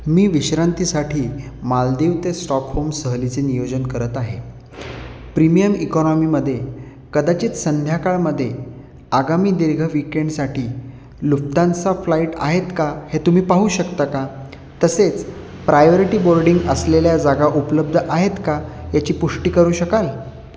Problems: none marked